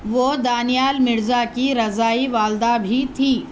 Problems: constant background noise